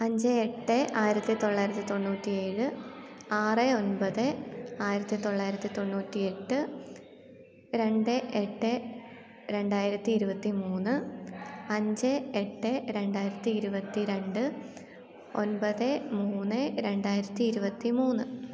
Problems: background sounds at intervals